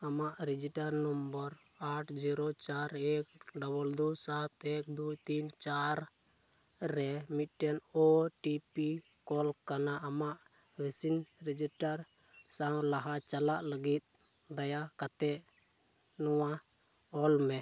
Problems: low volume